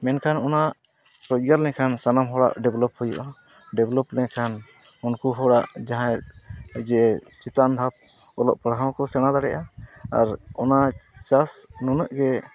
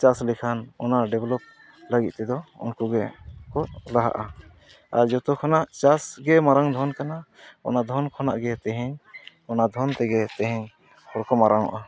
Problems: background sounds at intervals, continuous background conversations